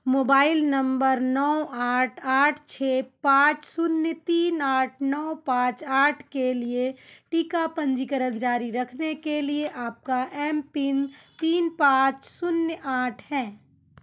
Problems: background conversations at intervals